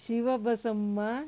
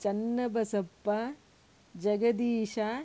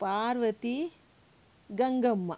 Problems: none marked